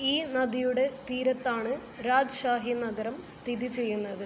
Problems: low volume